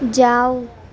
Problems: none marked